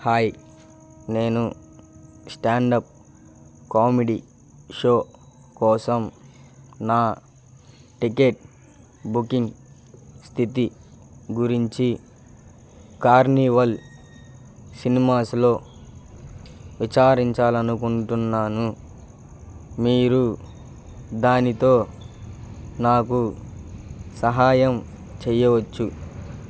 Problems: none marked